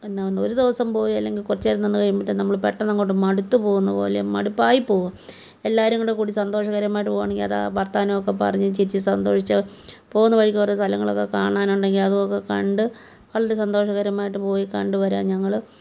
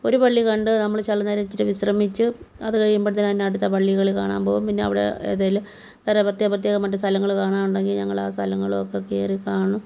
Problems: none marked